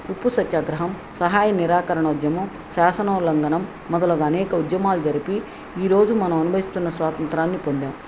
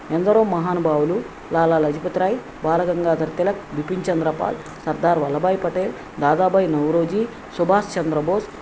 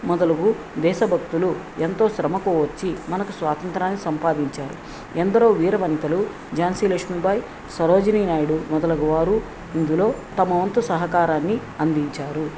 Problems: none marked